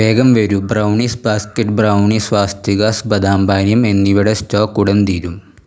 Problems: background sounds at intervals